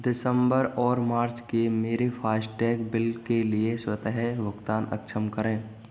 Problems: background sounds at intervals, continuous background conversations